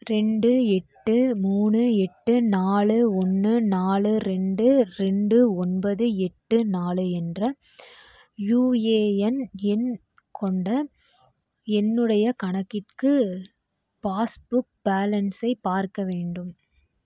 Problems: none marked